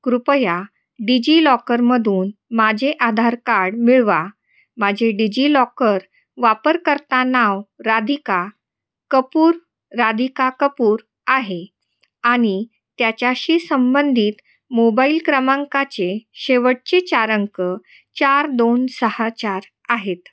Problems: constant background noise, echo